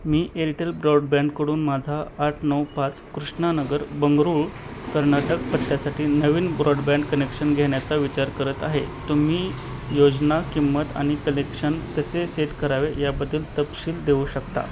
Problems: constant background noise